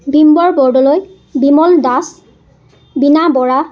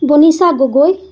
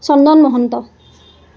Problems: constant background noise